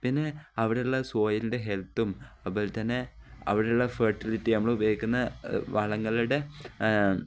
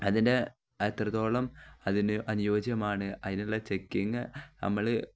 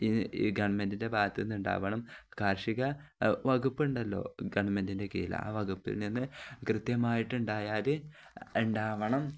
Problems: none marked